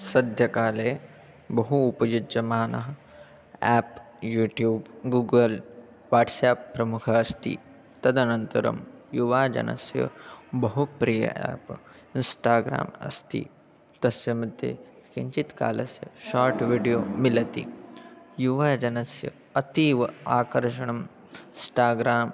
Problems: background sounds at intervals, continuous background conversations